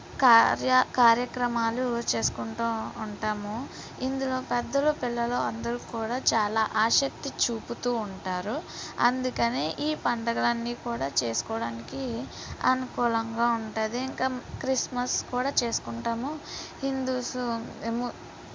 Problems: background sounds at intervals